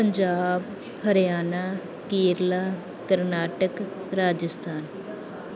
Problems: background sounds at intervals